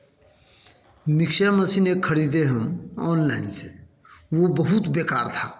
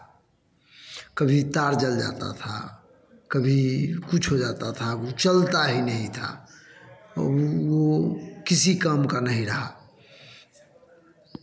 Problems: none marked